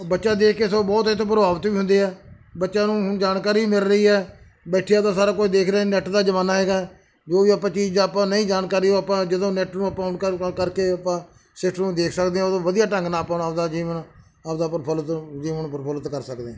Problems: background sounds at intervals